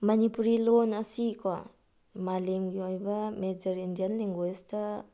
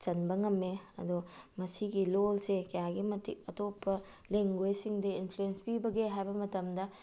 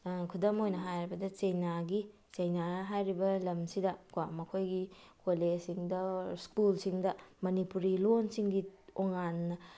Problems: none marked